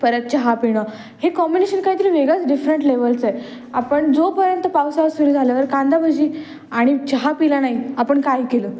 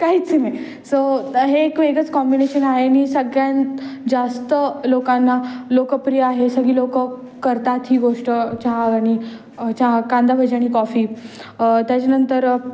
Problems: constant background noise